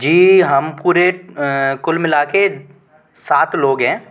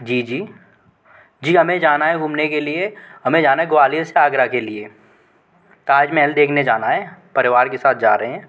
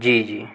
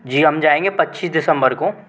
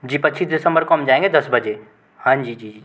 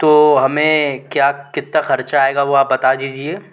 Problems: constant background noise